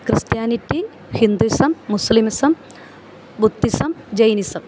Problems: constant background noise